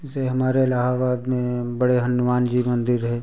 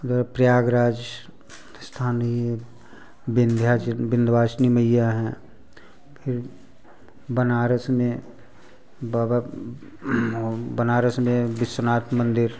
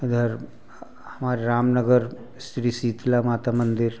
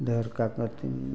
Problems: background sounds at intervals, continuous background conversations